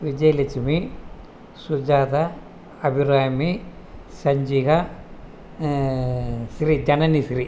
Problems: constant background noise